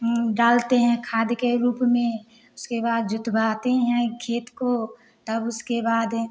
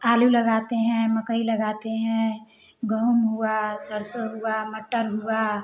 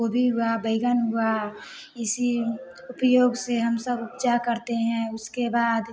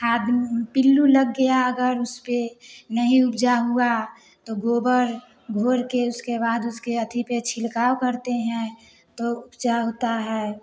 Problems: none marked